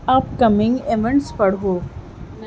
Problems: none marked